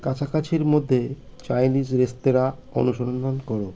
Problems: constant background noise